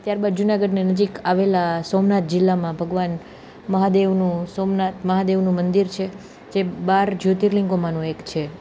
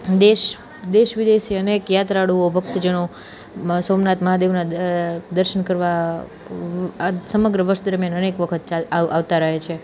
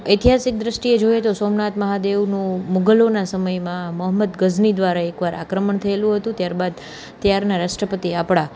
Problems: constant background noise